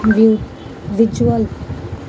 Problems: background sounds at intervals